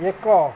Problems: constant background noise